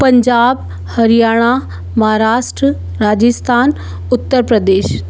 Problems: none marked